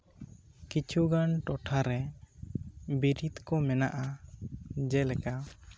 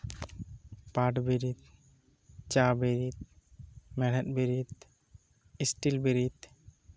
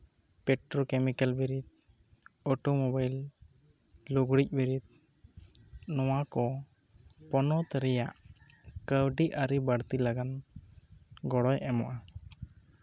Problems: low volume